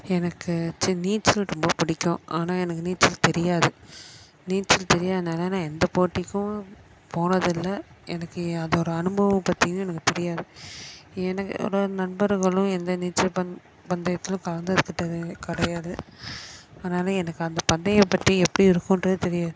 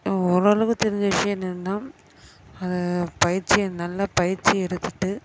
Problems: constant background noise, background conversations at intervals